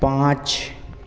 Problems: constant background noise